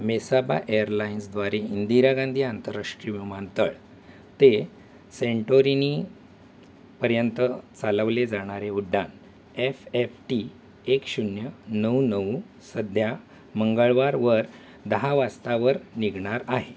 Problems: none marked